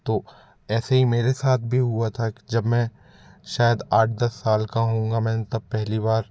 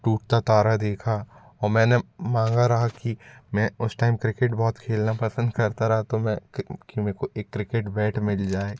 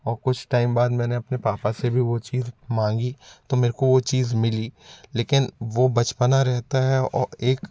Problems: none marked